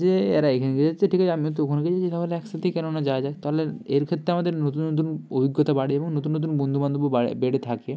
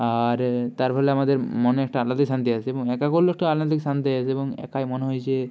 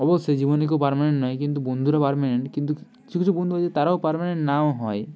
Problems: constant background noise